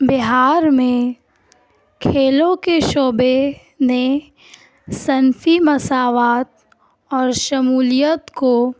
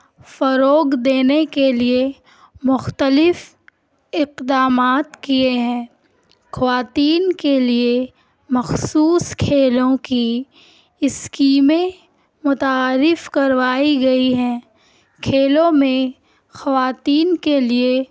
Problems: none marked